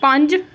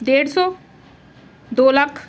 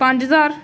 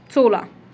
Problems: constant background noise